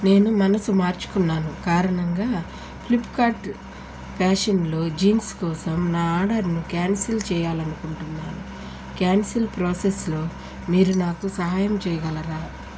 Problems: constant background noise